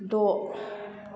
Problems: background sounds at intervals